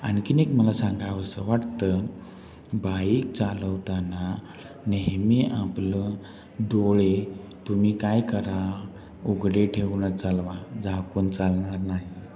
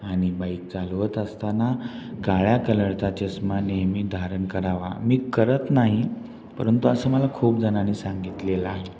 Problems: constant background noise, background conversations at intervals, low volume